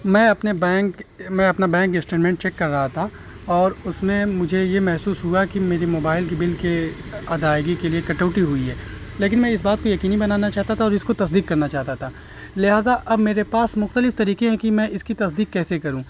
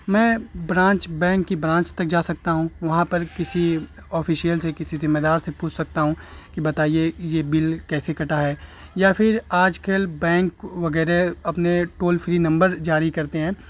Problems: constant background noise